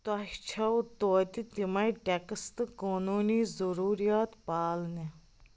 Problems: constant background noise